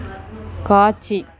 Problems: constant background noise